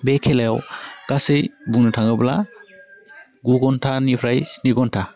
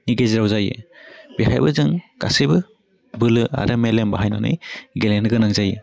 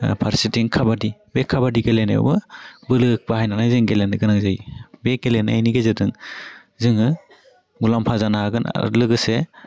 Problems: low volume